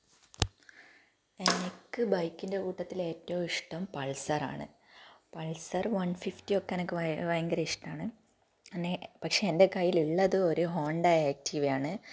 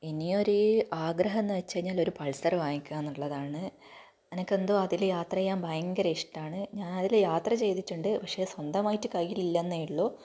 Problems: low volume